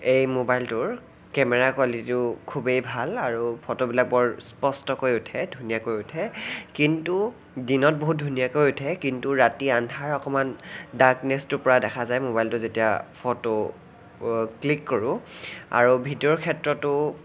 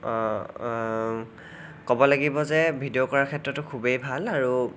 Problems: none marked